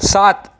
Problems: none marked